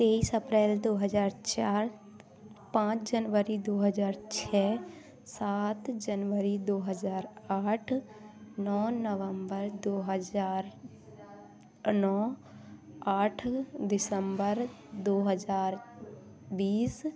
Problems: background sounds at intervals, background conversations at intervals